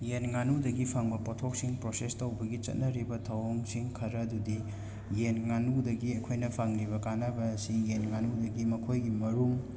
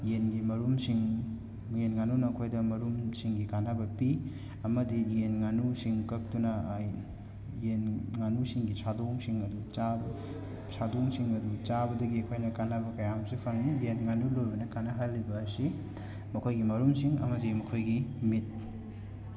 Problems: constant background noise, background conversations at intervals